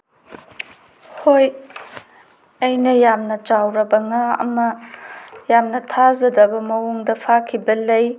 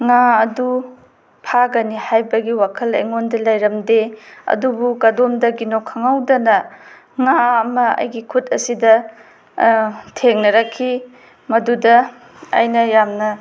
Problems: none marked